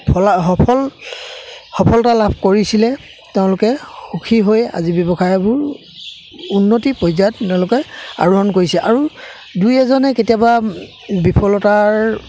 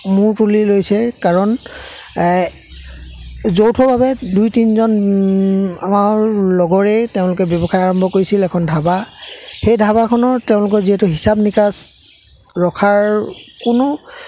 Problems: constant background noise, background conversations at intervals